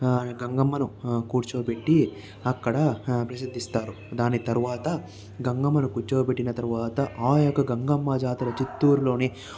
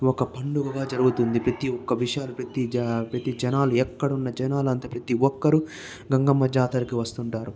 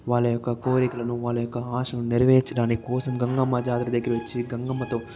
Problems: background sounds at intervals, continuous background conversations